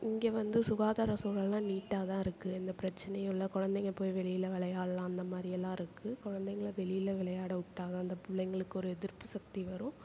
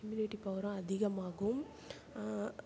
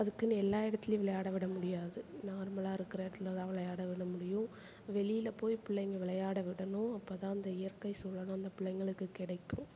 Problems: none marked